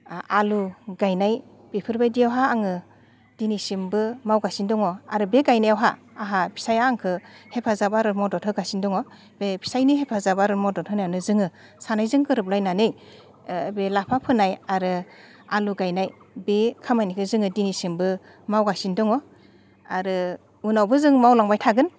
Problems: constant background noise